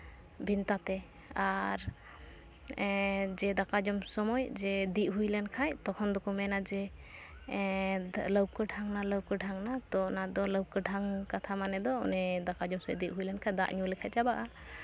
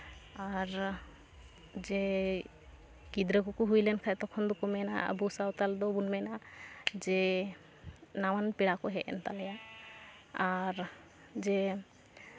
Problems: constant background noise